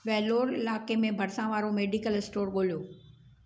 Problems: none marked